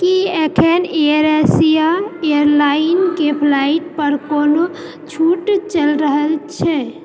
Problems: background conversations at intervals